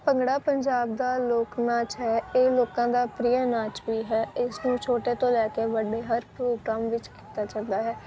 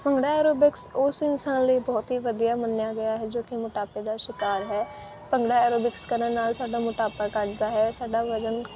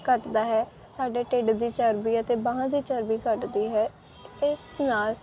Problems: background sounds at intervals